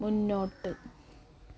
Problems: low volume